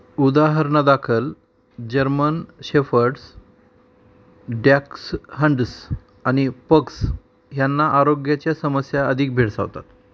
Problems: background sounds at intervals